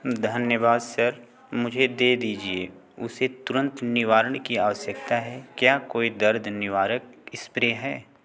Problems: none marked